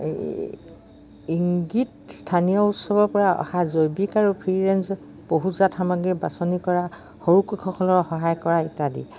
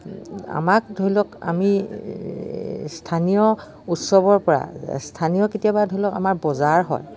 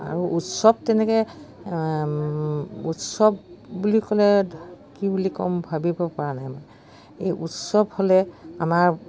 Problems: background sounds at intervals